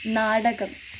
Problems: constant background noise